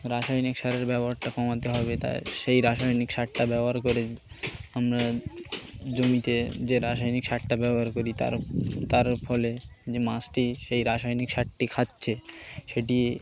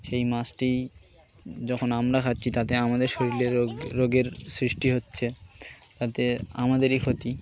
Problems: constant background noise, continuous background conversations